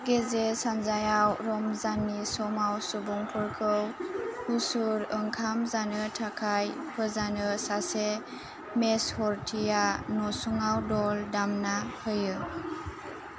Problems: constant background noise